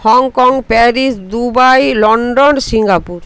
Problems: constant background noise